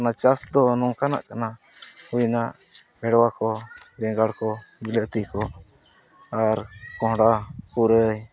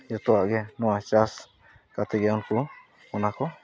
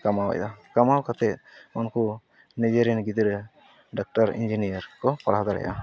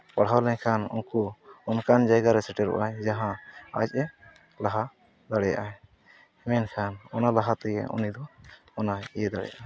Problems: background sounds at intervals, continuous background conversations